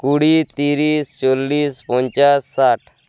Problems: background sounds at intervals